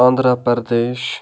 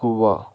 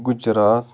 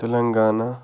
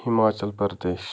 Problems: background conversations at intervals, low volume